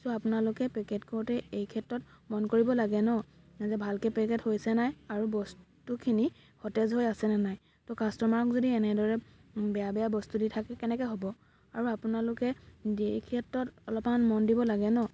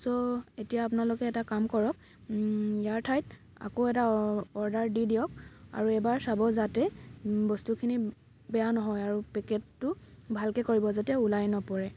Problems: constant background noise